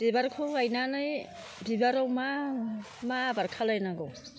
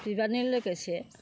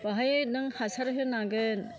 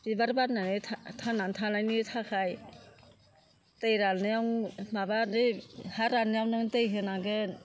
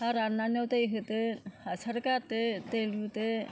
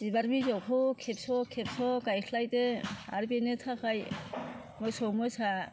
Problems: constant background noise